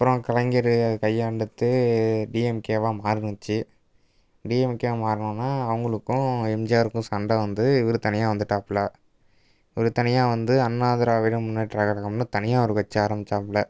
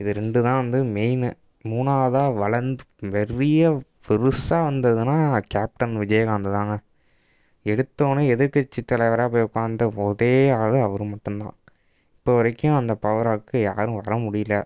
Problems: background sounds at intervals